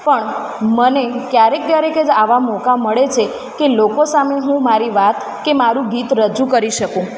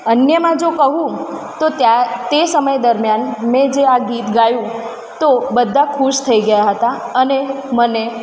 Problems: constant background noise, echo